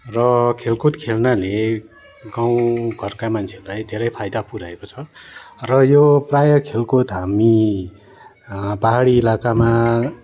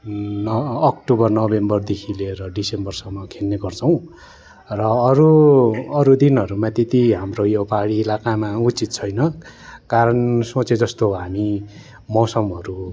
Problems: continuous background conversations